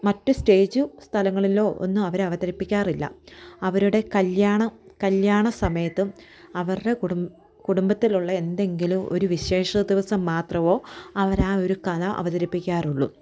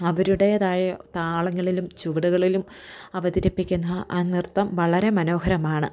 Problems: none marked